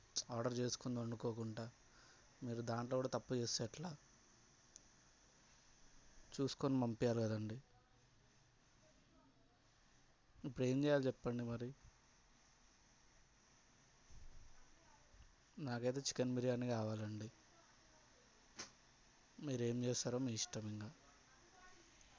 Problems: low volume